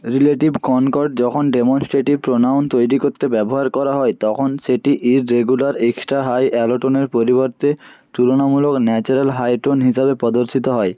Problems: none marked